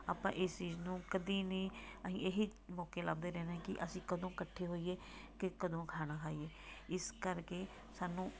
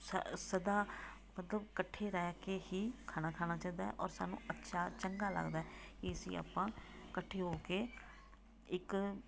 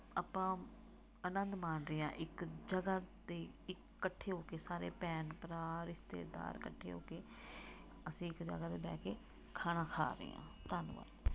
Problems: background sounds at intervals, background conversations at intervals